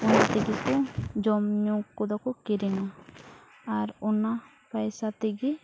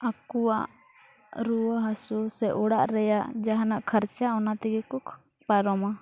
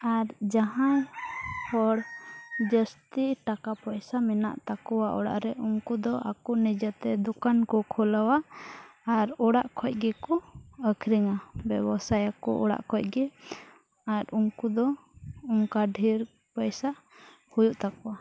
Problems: background sounds at intervals, low volume